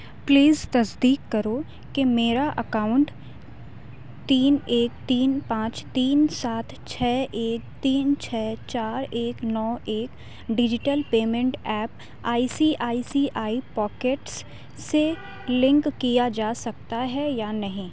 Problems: constant background noise